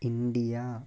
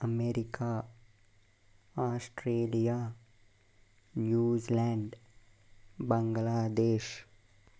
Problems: constant background noise, low volume